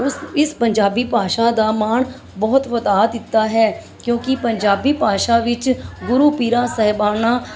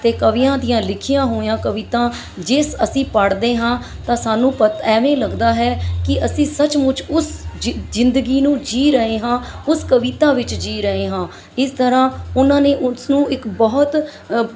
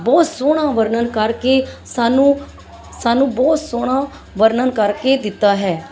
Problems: constant background noise, background conversations at intervals